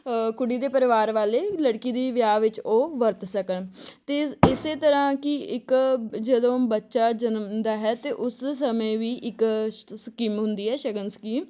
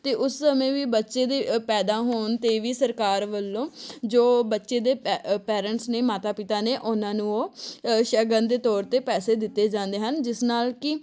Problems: background sounds at intervals